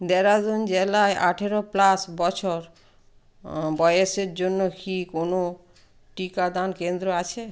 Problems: constant background noise